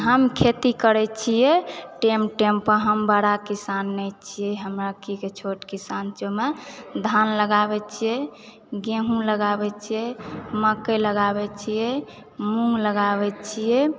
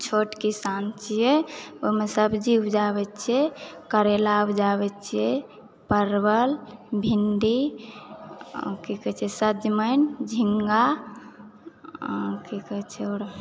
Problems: background conversations at intervals